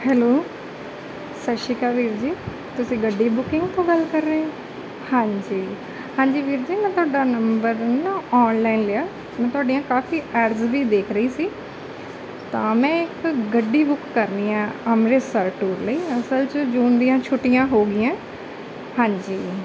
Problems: none marked